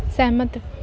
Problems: constant background noise